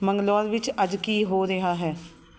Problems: background sounds at intervals